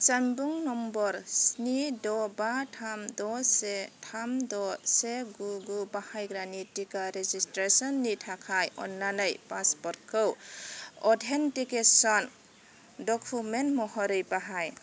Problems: none marked